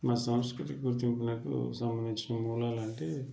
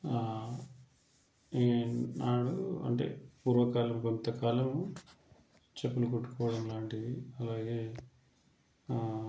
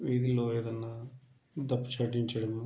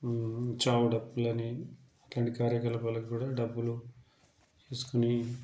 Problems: low volume